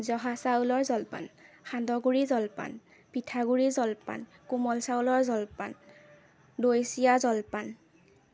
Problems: none marked